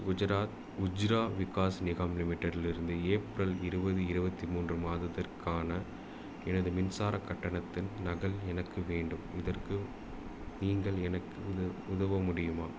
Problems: none marked